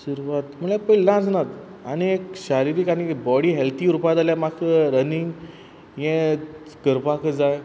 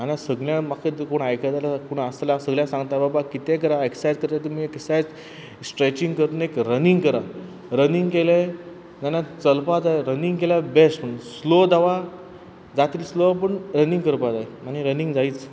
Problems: none marked